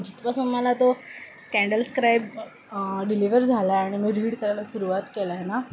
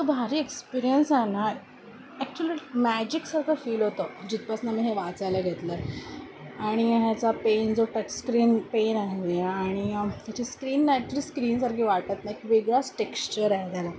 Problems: none marked